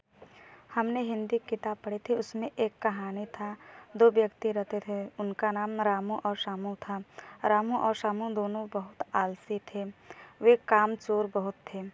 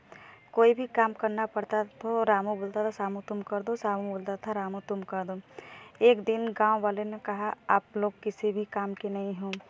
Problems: none marked